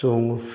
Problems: none marked